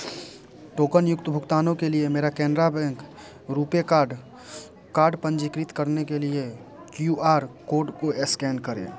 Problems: constant background noise